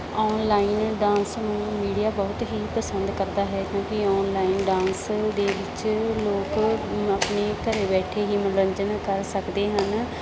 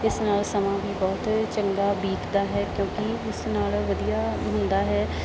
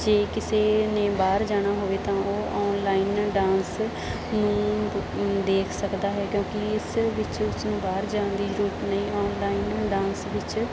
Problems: constant background noise